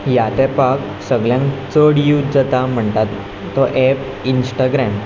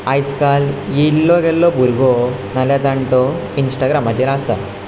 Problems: background sounds at intervals